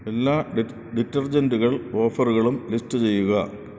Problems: constant background noise